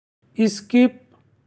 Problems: constant background noise